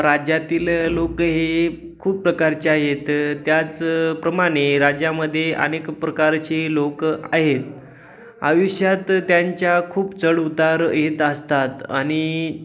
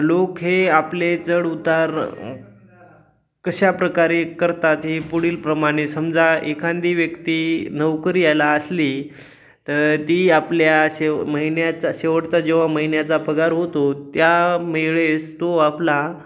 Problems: none marked